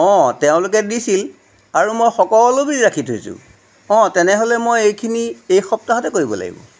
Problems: background sounds at intervals